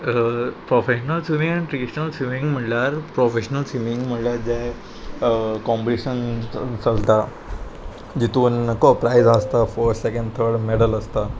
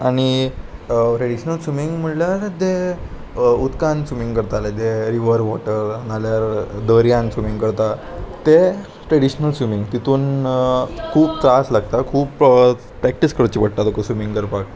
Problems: constant background noise, background conversations at intervals